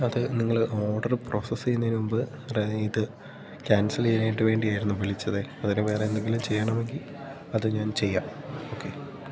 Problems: background sounds at intervals